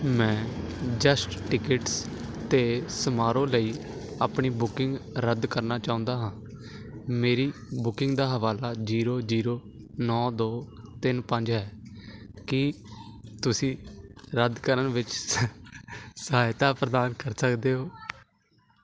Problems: constant background noise